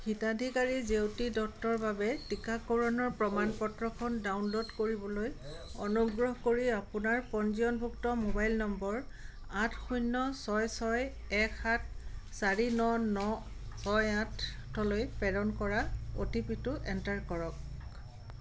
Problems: constant background noise